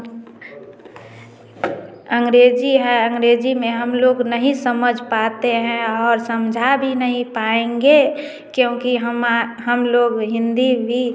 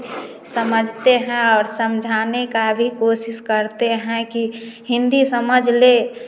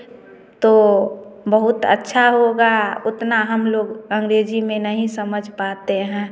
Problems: none marked